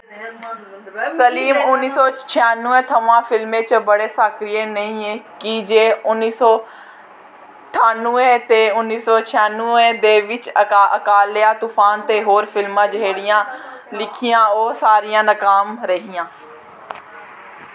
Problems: constant background noise, background conversations at intervals